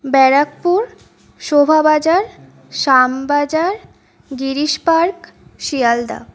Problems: background sounds at intervals